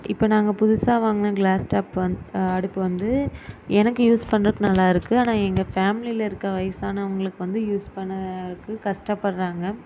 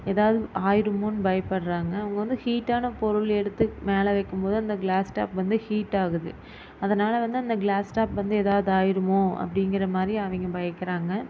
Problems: none marked